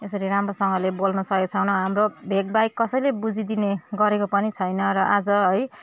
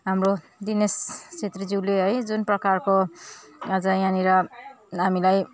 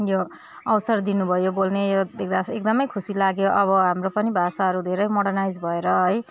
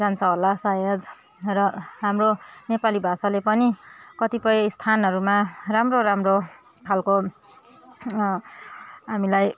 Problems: none marked